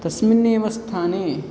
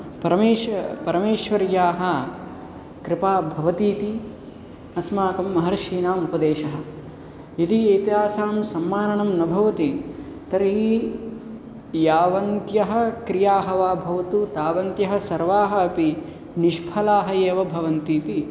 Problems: none marked